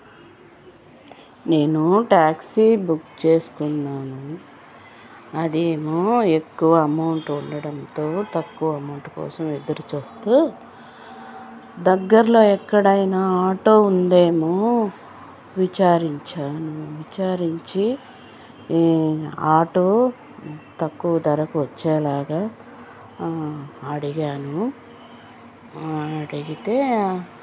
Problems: constant background noise